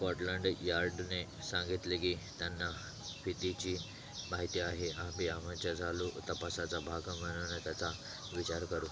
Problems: none marked